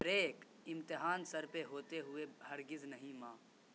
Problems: constant background noise